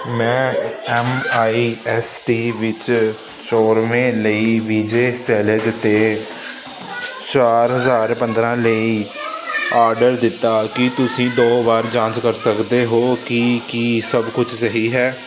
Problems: constant background noise